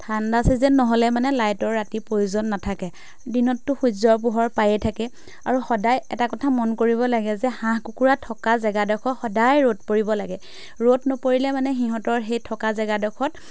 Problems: background sounds at intervals